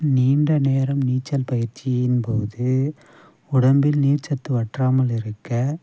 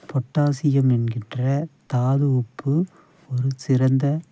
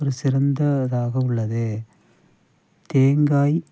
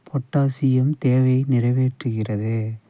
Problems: background sounds at intervals, low volume